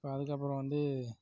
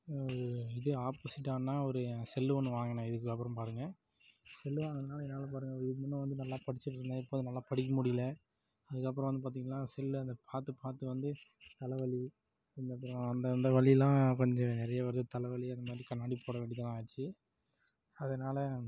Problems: low volume